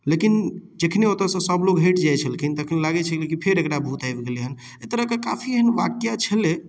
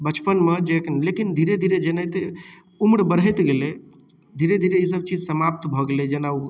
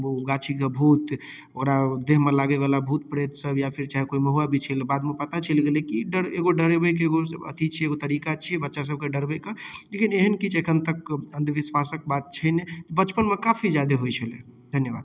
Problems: none marked